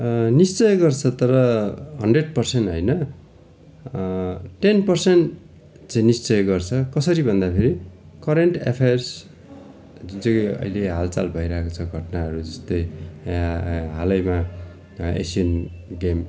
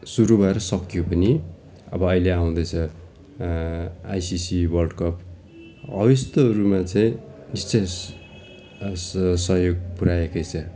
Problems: continuous background conversations